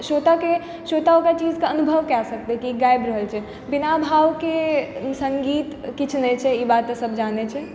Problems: background sounds at intervals